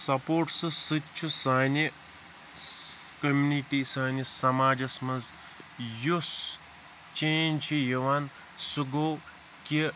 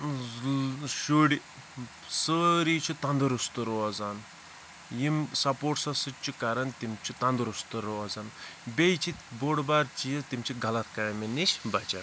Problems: constant background noise